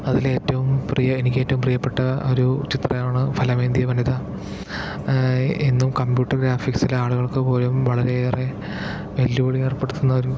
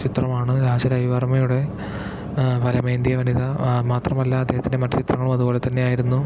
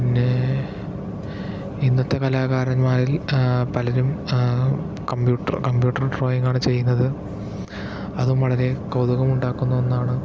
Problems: background sounds at intervals, background conversations at intervals